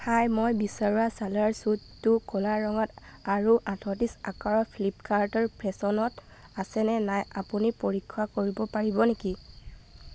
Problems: constant background noise